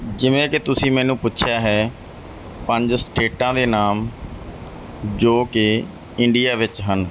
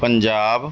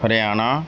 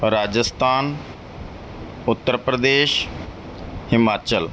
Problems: none marked